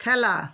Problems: none marked